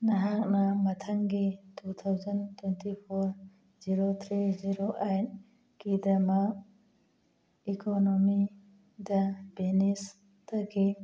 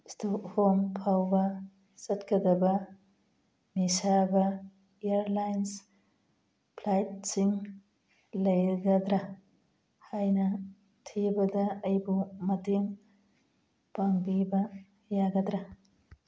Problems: background sounds at intervals